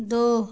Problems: none marked